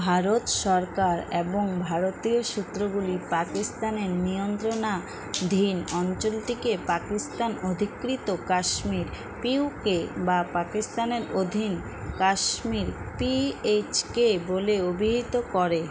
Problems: constant background noise, continuous background conversations